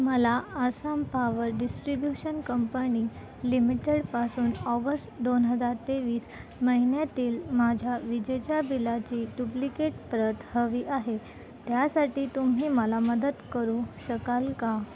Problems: constant background noise